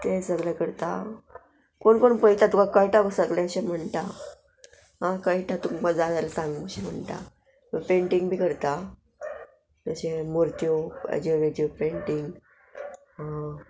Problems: none marked